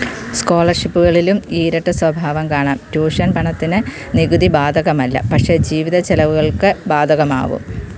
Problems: constant background noise